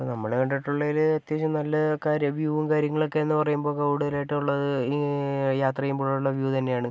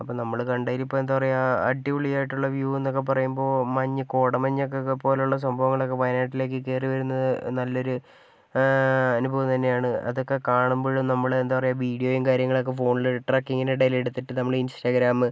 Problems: none marked